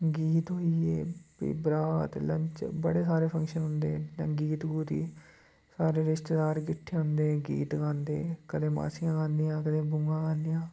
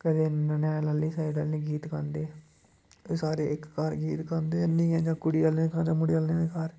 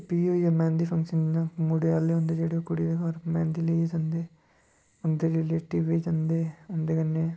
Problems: none marked